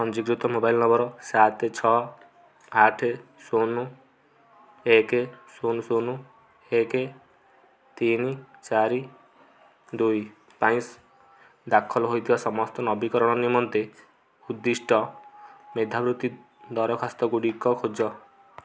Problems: low volume